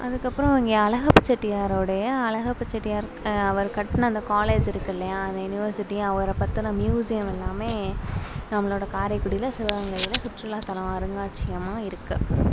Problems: background sounds at intervals